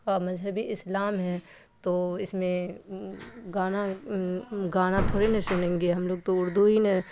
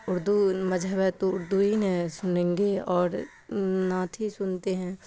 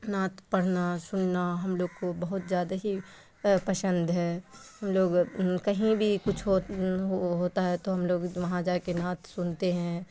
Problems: constant background noise